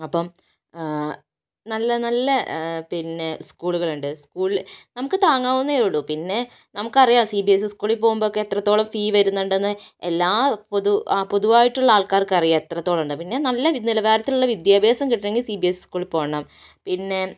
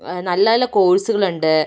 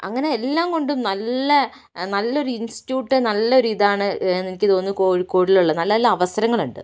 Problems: none marked